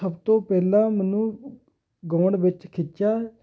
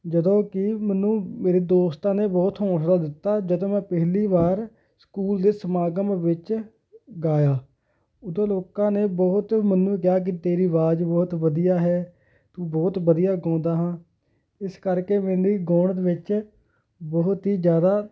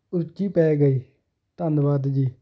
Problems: background sounds at intervals